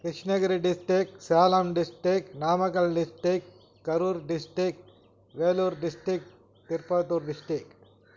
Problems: background sounds at intervals